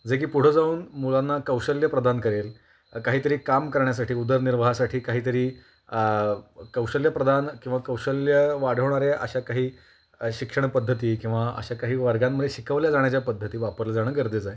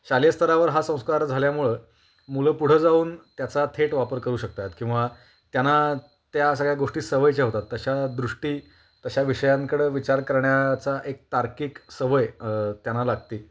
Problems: constant background noise